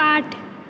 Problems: echo